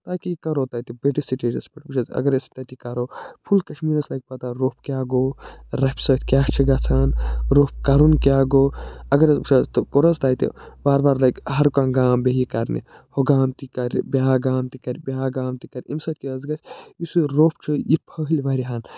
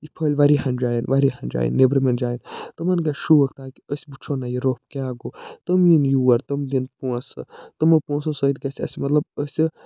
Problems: none marked